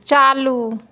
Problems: none marked